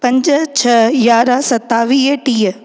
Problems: echo